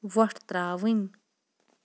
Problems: background sounds at intervals